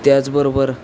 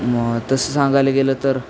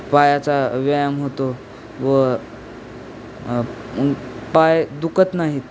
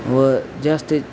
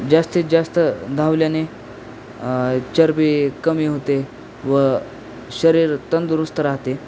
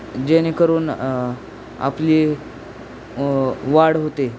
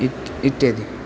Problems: constant background noise